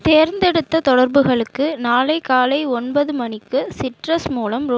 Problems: background sounds at intervals